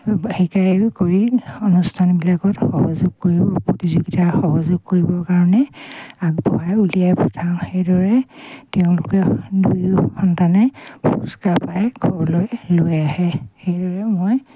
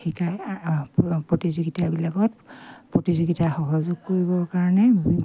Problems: none marked